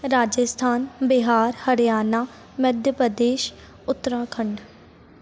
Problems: constant background noise